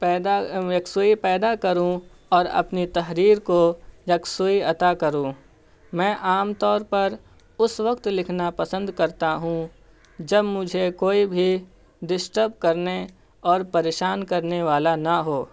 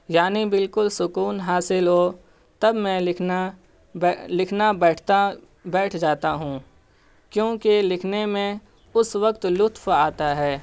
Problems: constant background noise